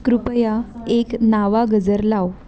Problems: none marked